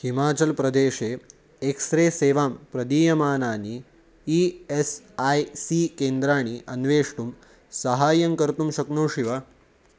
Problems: constant background noise